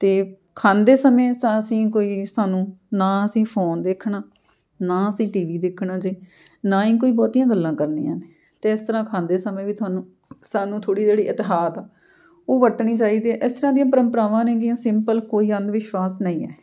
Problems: background sounds at intervals